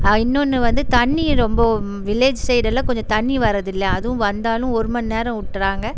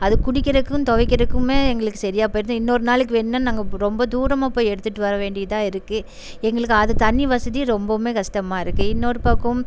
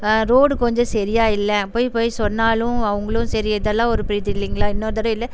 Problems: background sounds at intervals